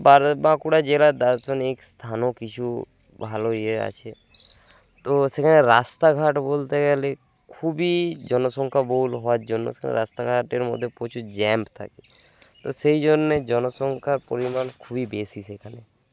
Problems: constant background noise